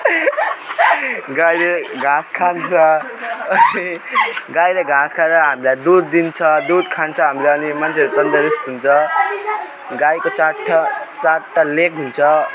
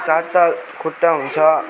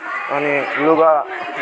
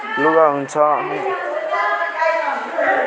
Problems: none marked